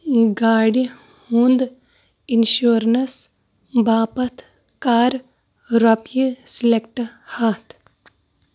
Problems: constant background noise